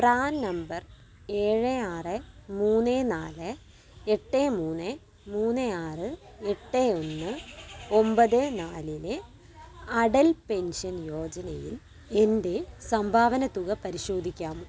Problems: none marked